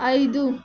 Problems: none marked